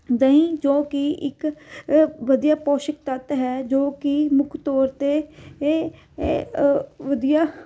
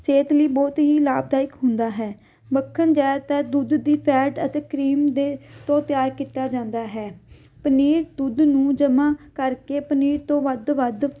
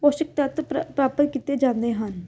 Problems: none marked